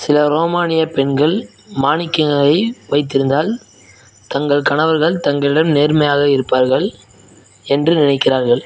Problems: background sounds at intervals